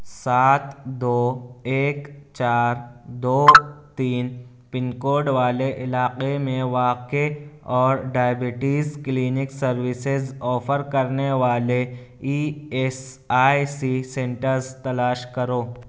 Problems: none marked